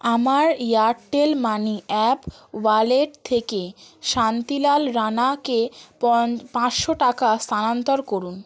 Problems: background sounds at intervals